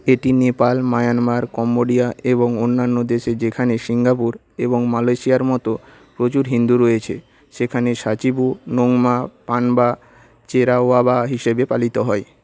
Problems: none marked